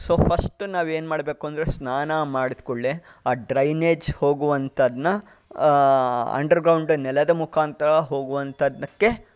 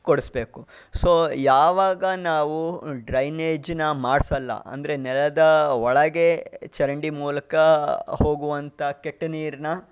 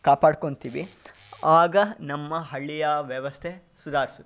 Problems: none marked